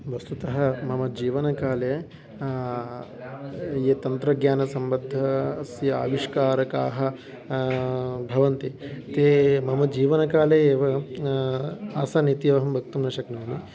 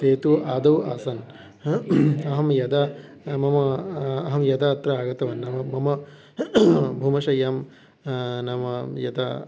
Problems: none marked